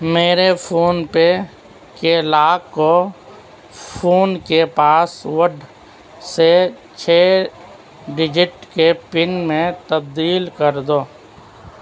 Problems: constant background noise, continuous background conversations